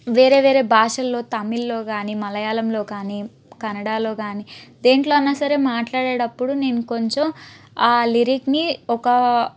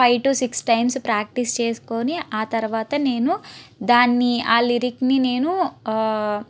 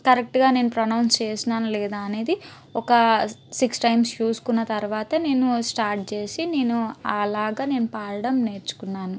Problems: none marked